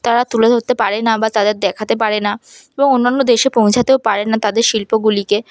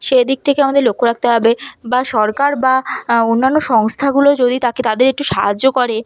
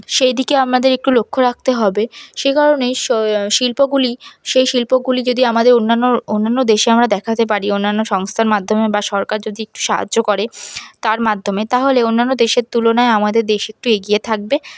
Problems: none marked